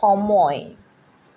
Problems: constant background noise